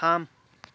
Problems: none marked